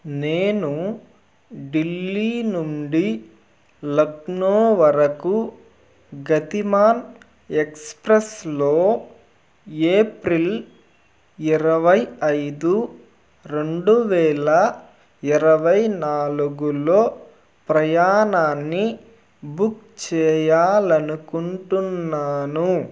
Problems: background sounds at intervals